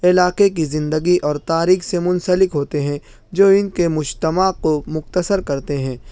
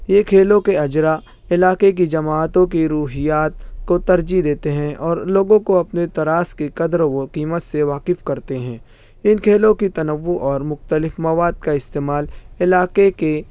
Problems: none marked